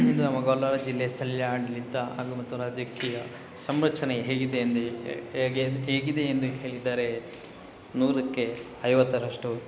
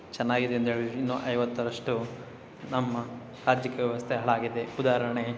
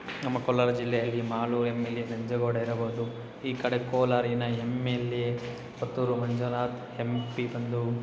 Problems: constant background noise